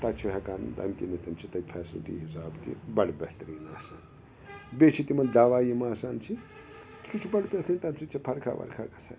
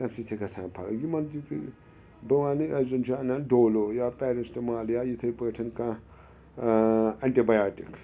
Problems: background sounds at intervals